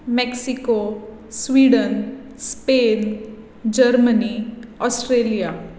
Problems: none marked